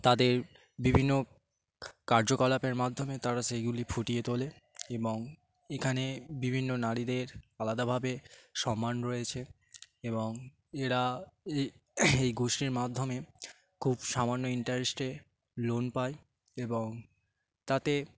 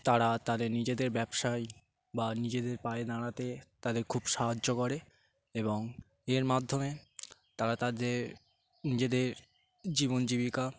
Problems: constant background noise